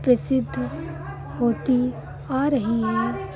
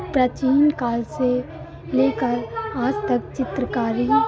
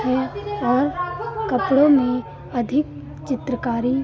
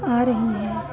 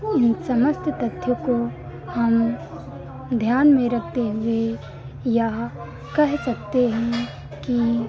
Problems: constant background noise, continuous background conversations